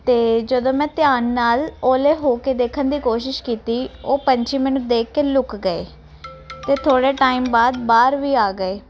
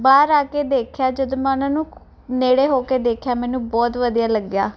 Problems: background sounds at intervals